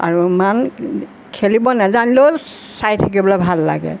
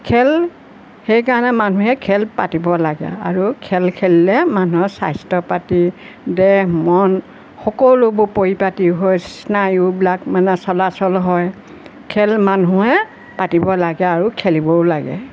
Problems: constant background noise